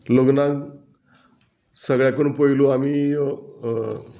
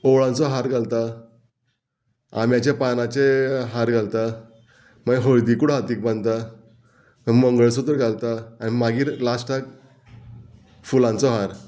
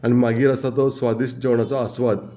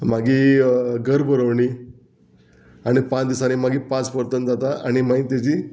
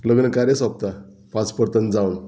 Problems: background sounds at intervals